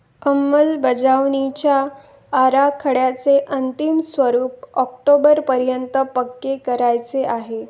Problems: background sounds at intervals